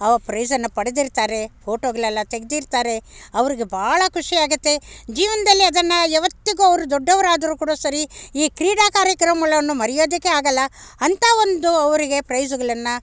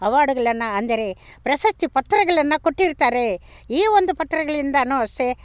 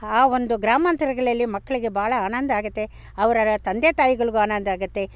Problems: background sounds at intervals